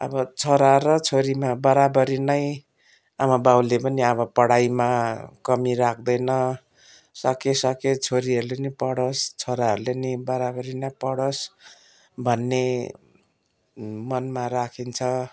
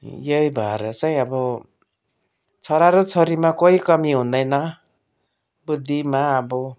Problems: none marked